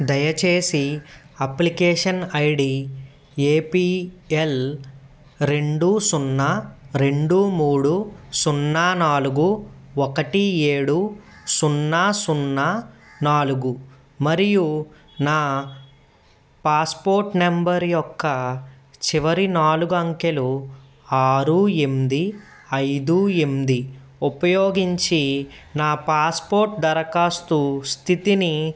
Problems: background sounds at intervals